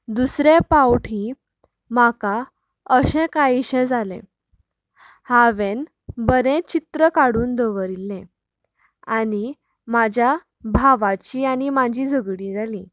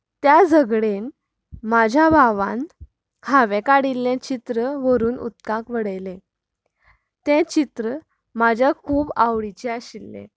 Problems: background conversations at intervals